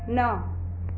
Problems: constant background noise